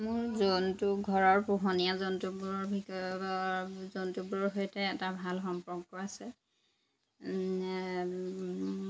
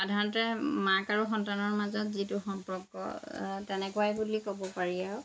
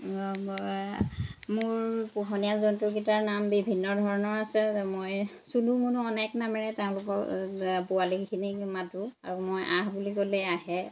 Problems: constant background noise